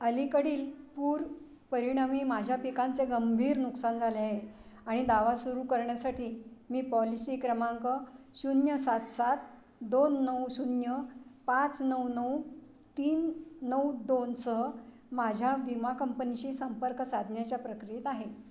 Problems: constant background noise, background conversations at intervals